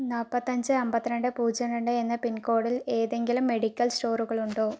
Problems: low volume